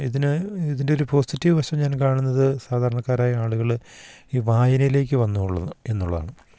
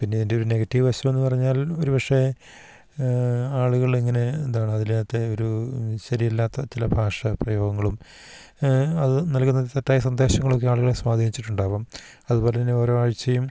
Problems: background sounds at intervals